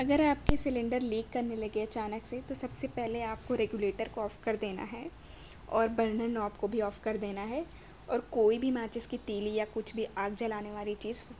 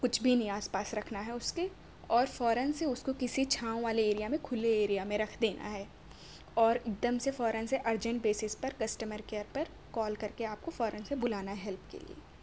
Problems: none marked